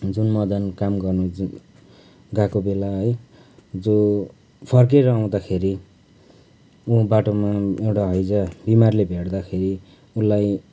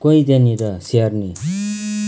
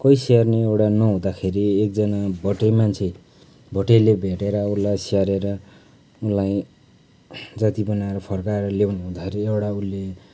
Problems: background sounds at intervals